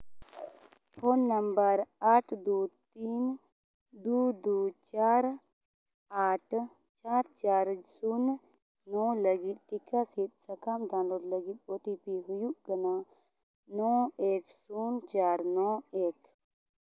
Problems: none marked